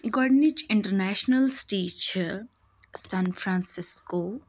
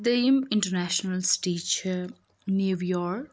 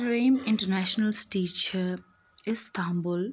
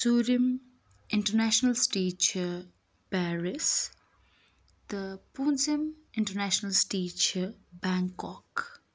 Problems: none marked